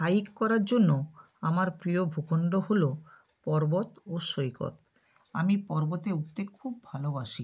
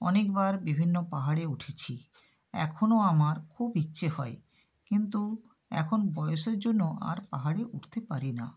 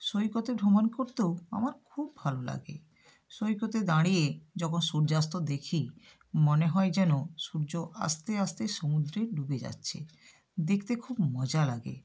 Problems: background sounds at intervals